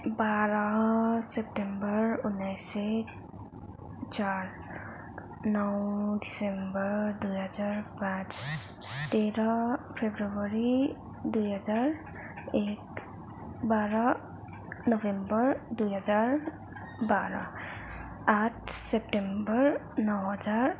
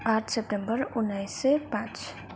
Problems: background sounds at intervals